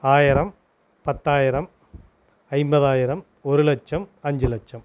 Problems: none marked